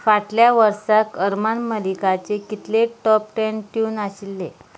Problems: none marked